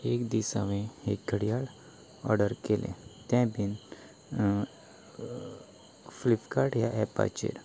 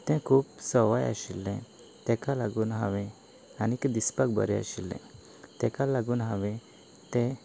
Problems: none marked